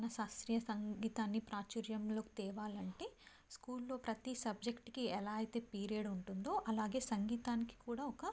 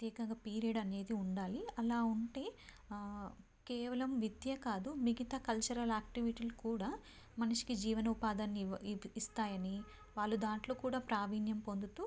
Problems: low volume